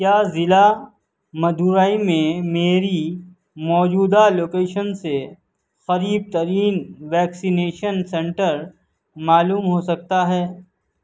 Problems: none marked